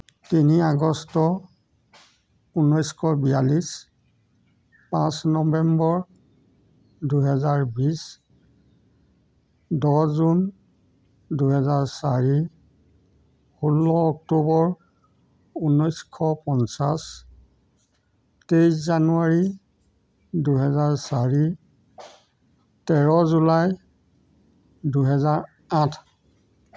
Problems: background sounds at intervals